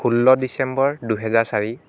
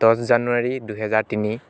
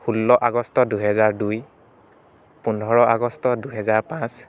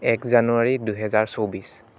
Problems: constant background noise